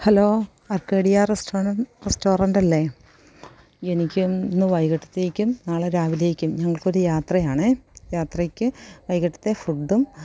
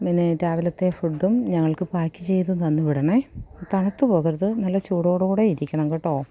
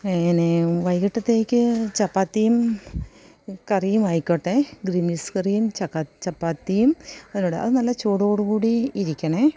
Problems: none marked